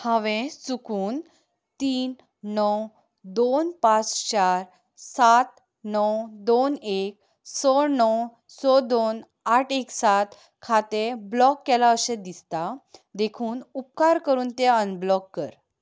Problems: background sounds at intervals